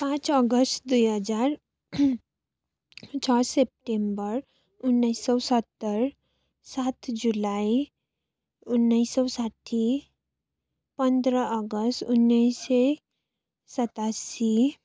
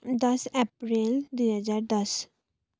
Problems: constant background noise